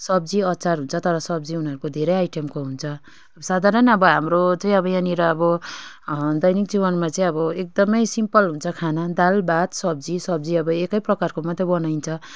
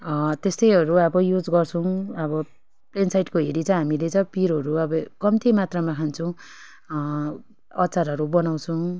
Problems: none marked